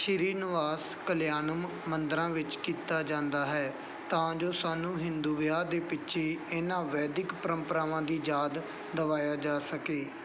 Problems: background sounds at intervals